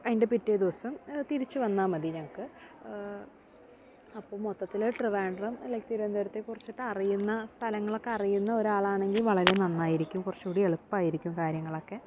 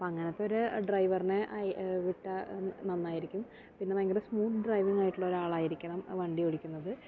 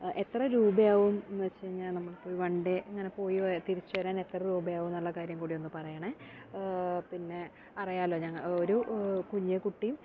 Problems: background sounds at intervals